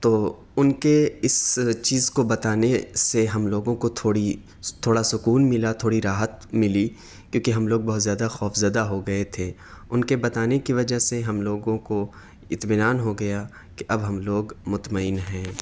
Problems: none marked